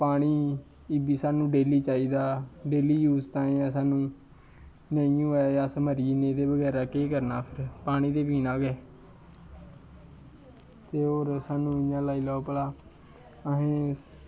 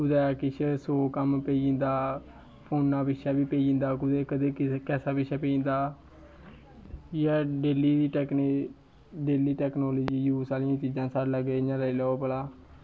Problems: none marked